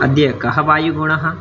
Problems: constant background noise